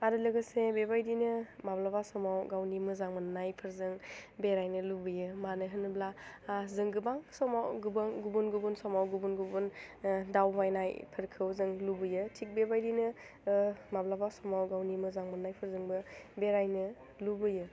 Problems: low volume